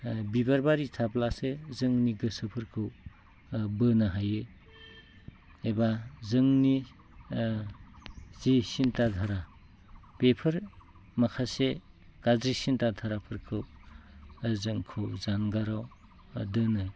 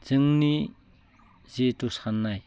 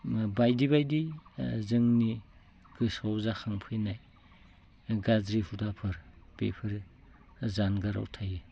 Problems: none marked